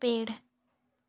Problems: constant background noise